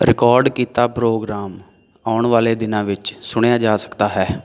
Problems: background sounds at intervals